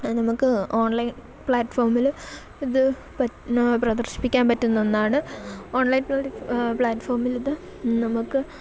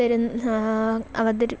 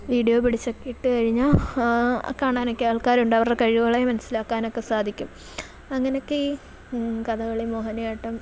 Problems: none marked